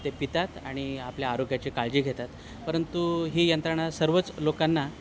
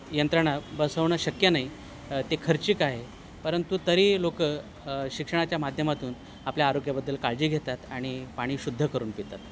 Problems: none marked